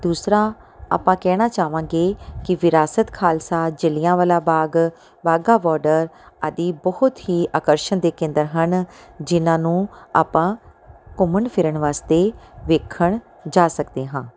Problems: background sounds at intervals